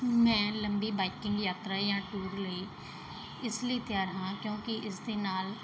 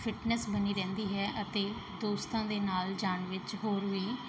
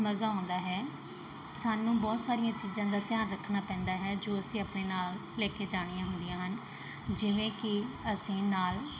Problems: background sounds at intervals, background conversations at intervals